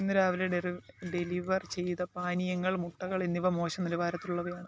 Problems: background sounds at intervals, low volume